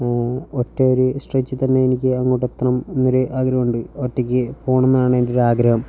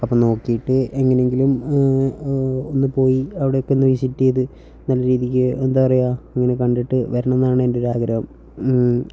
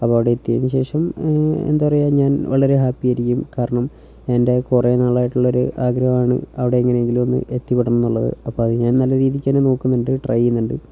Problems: none marked